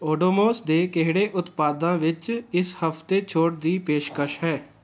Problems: background conversations at intervals